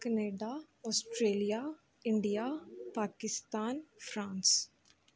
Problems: background sounds at intervals